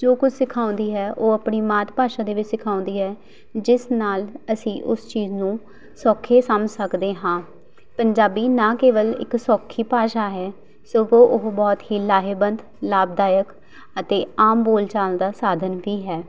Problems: none marked